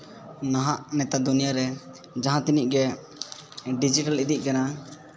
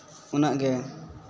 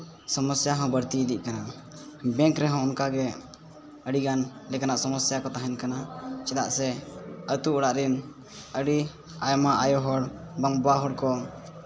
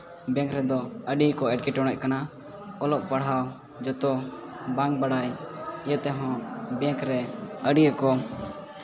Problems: background sounds at intervals, continuous background conversations